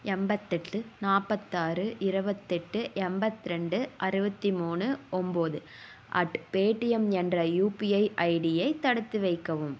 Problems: none marked